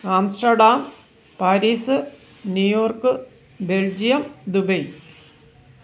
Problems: background sounds at intervals